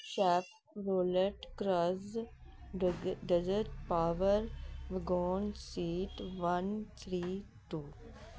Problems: background sounds at intervals